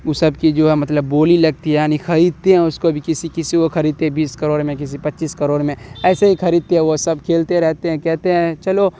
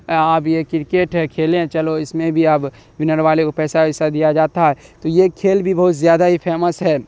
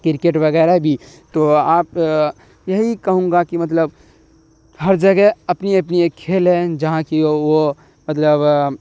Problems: constant background noise